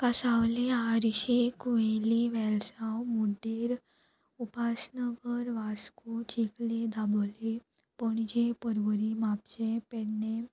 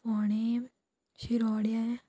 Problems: none marked